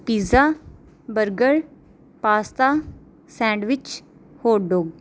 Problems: none marked